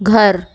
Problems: background sounds at intervals